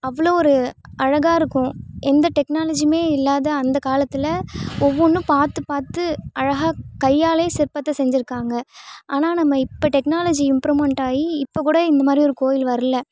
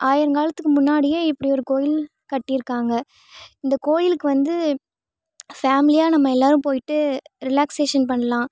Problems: none marked